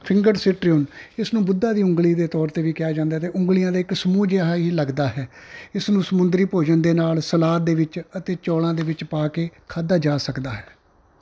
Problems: background sounds at intervals